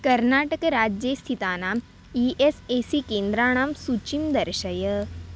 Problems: none marked